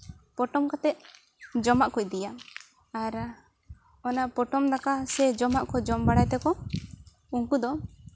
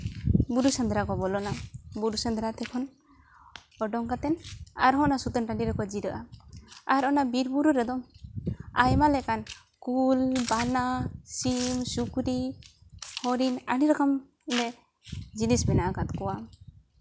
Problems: none marked